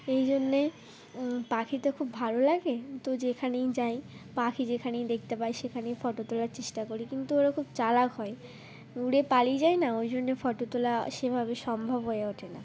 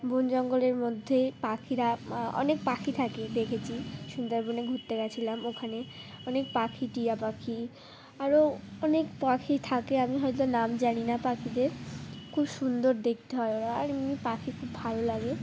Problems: background sounds at intervals